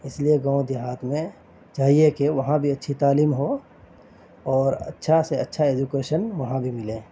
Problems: constant background noise